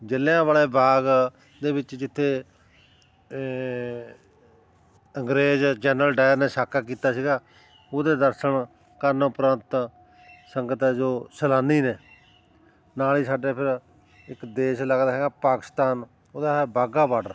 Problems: constant background noise, continuous background conversations